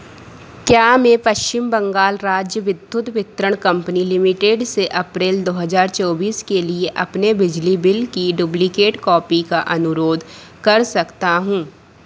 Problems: none marked